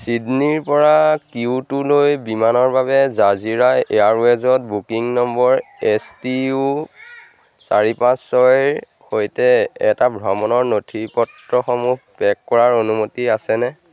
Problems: constant background noise